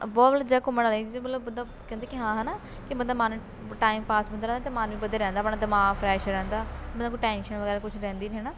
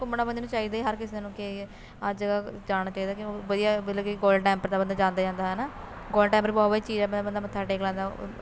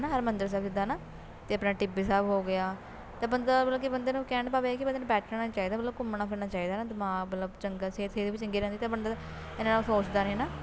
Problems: constant background noise